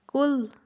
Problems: background sounds at intervals